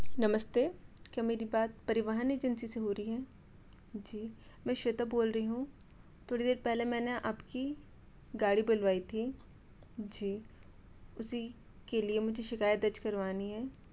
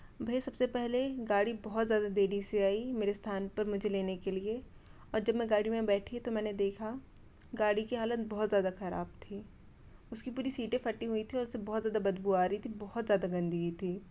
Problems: constant background noise